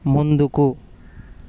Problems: constant background noise